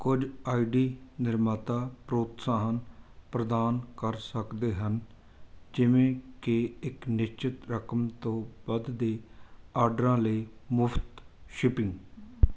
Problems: background sounds at intervals